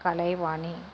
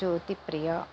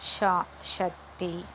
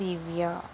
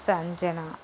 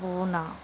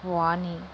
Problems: constant background noise